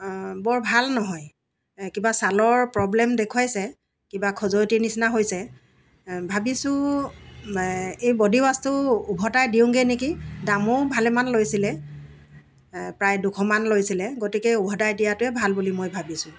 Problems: background sounds at intervals